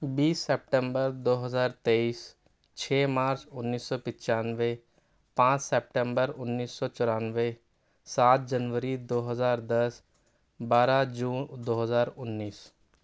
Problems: none marked